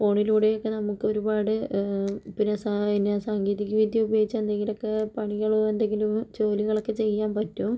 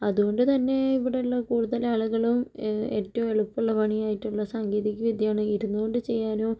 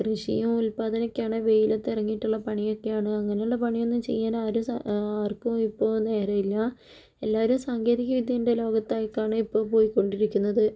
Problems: none marked